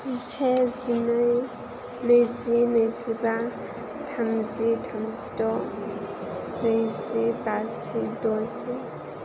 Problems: constant background noise